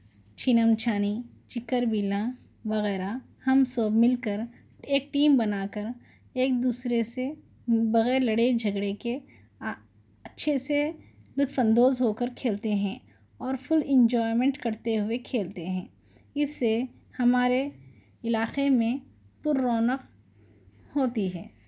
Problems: none marked